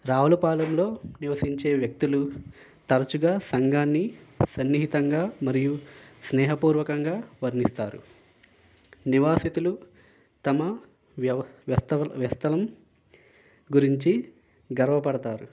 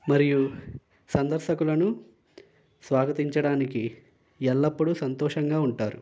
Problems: none marked